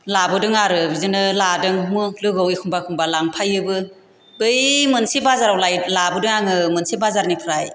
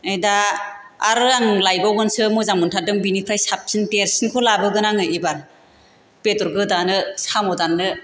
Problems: constant background noise